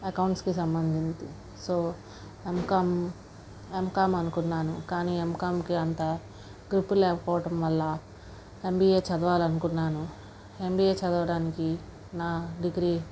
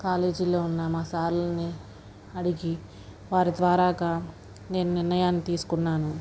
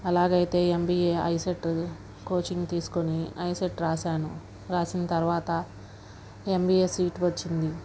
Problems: background sounds at intervals, low volume